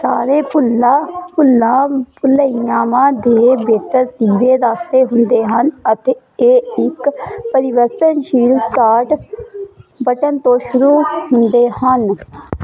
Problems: continuous background conversations